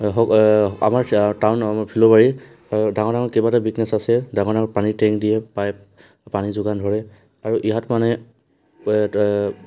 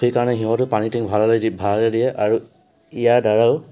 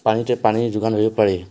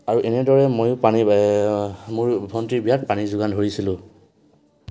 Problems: constant background noise, background conversations at intervals